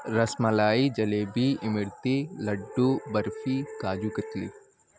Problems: constant background noise